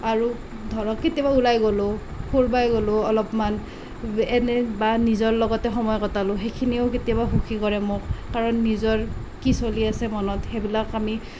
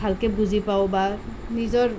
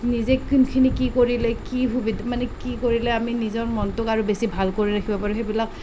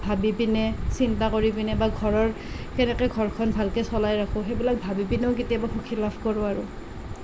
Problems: constant background noise